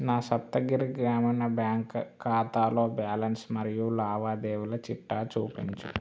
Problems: none marked